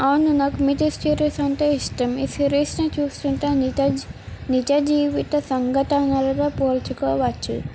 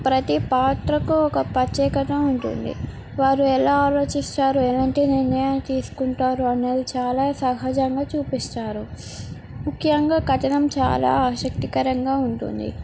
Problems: none marked